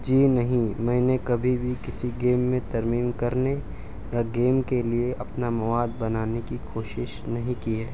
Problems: constant background noise